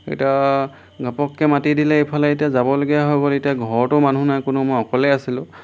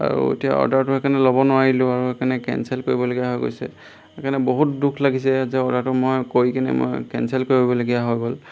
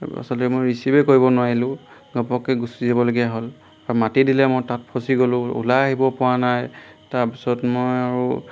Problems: none marked